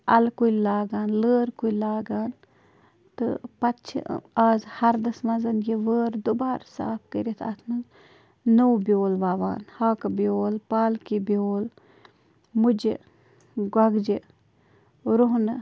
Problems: constant background noise